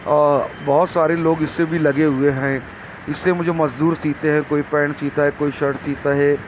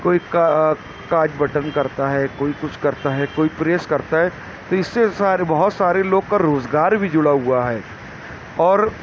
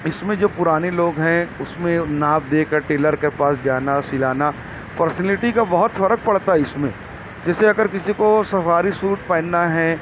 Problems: constant background noise